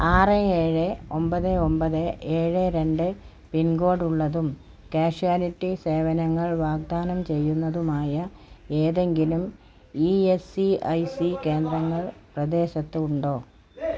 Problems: background conversations at intervals